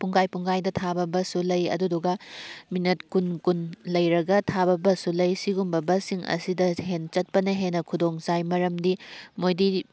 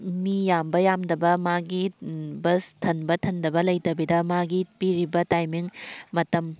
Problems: background sounds at intervals